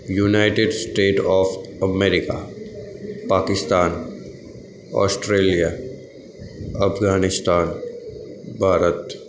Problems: constant background noise